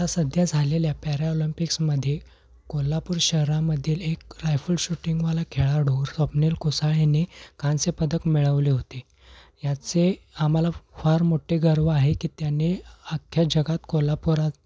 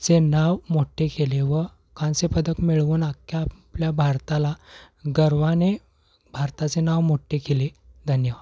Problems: none marked